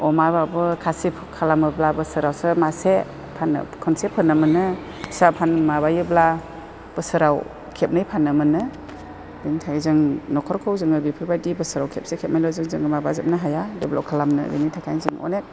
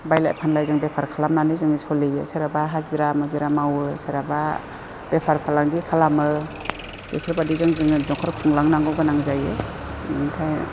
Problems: constant background noise